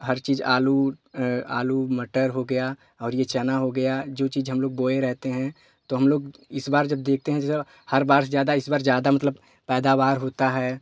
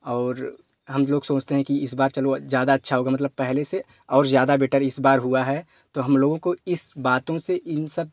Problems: none marked